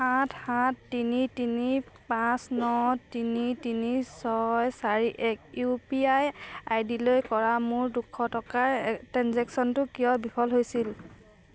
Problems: none marked